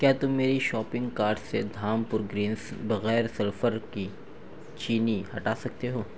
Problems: none marked